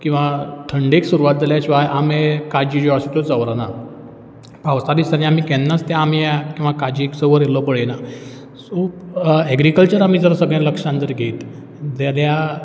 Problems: none marked